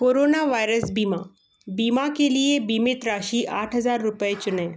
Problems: background sounds at intervals